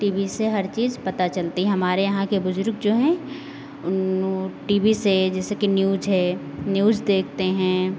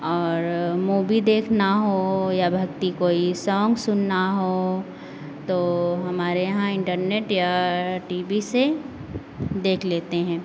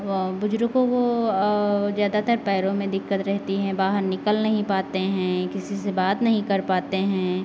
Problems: none marked